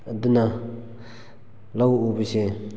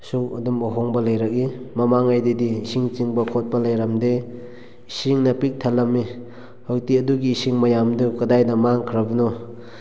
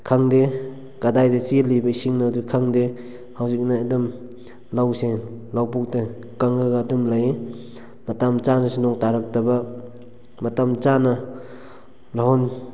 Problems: none marked